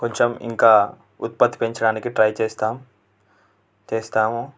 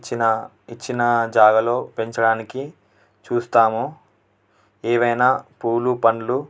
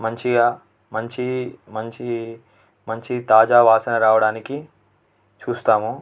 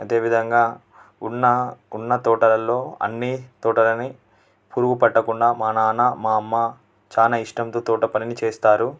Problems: constant background noise